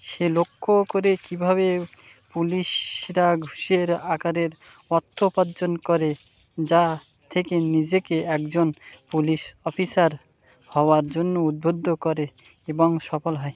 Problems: constant background noise